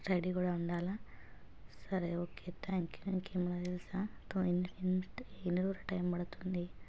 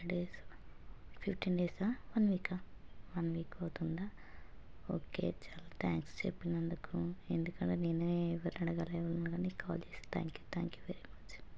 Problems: constant background noise, low volume